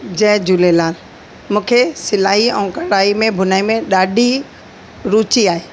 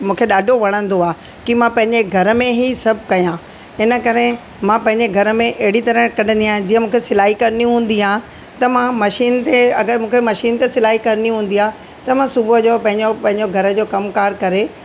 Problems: constant background noise, echo